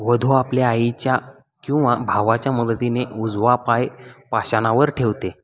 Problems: constant background noise, background conversations at intervals